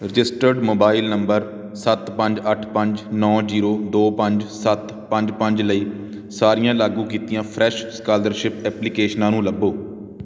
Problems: none marked